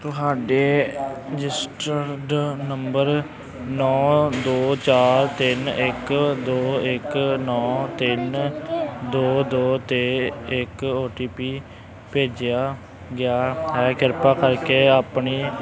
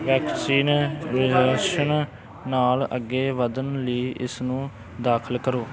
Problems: constant background noise, background conversations at intervals